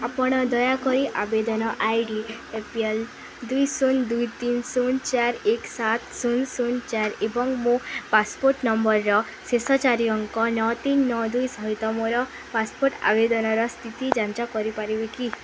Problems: constant background noise